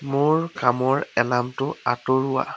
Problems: constant background noise